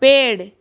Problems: background sounds at intervals